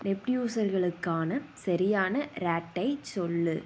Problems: background sounds at intervals